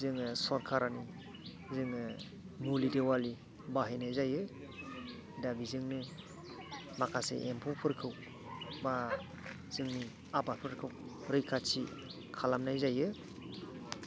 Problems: continuous background conversations, low volume